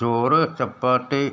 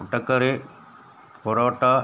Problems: constant background noise